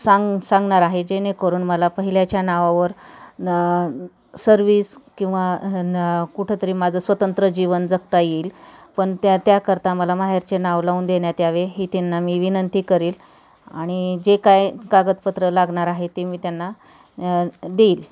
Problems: constant background noise, background conversations at intervals